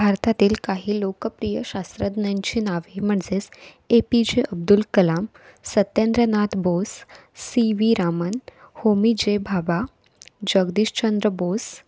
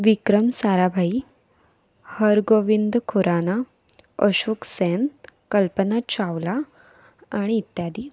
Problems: background sounds at intervals